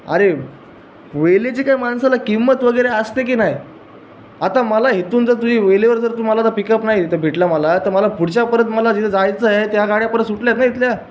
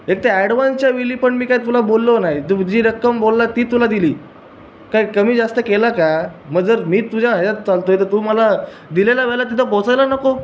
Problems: none marked